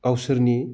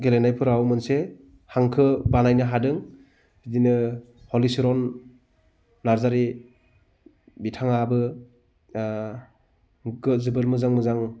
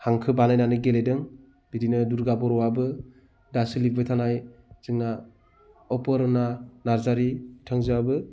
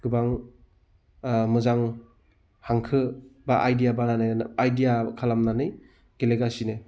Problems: none marked